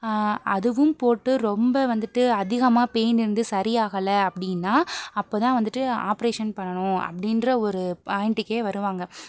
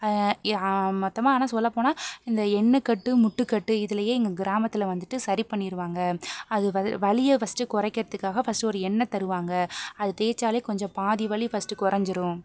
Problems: background sounds at intervals, background conversations at intervals